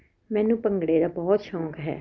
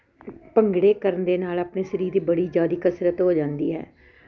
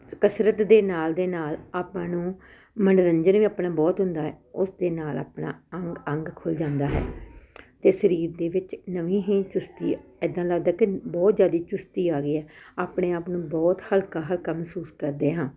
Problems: none marked